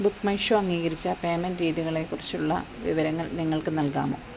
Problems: constant background noise